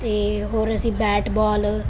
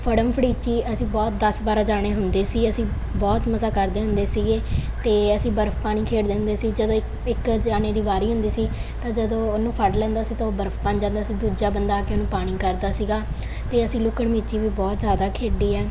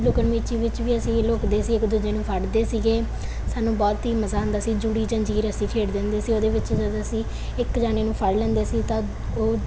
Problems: none marked